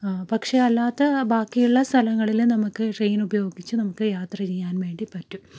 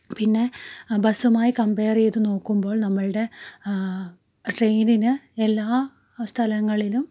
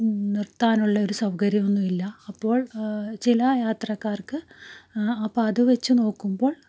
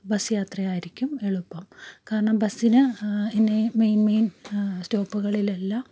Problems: none marked